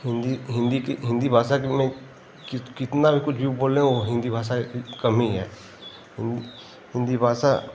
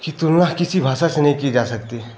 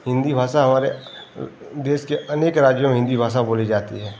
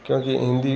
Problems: constant background noise